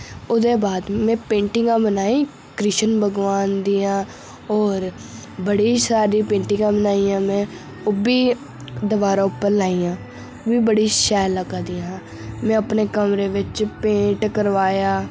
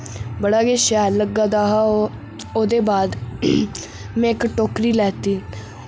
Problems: none marked